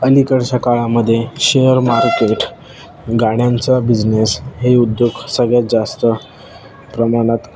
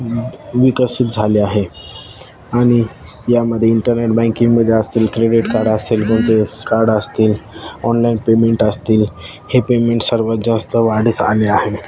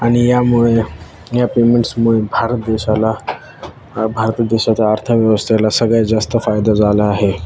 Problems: none marked